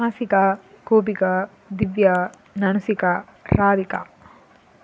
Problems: background sounds at intervals